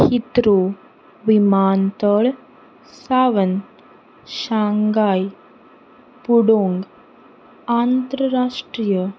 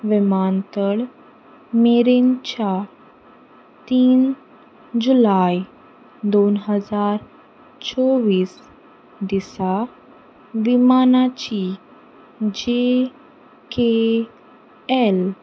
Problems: constant background noise